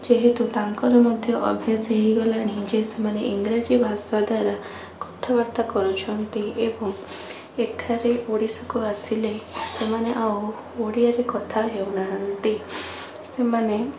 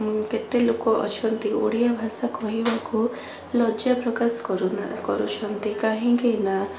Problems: constant background noise